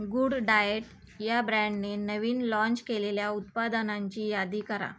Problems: constant background noise